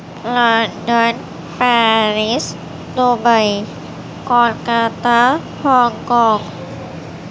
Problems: constant background noise